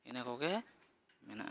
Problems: constant background noise, background conversations at intervals